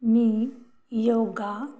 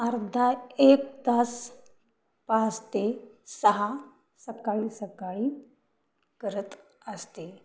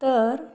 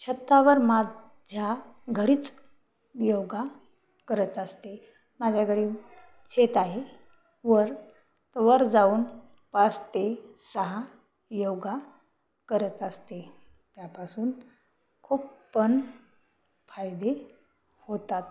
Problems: none marked